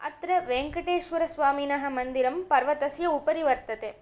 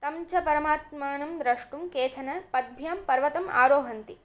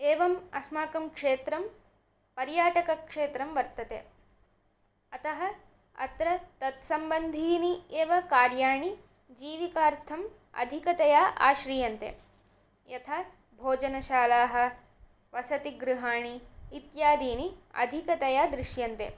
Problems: none marked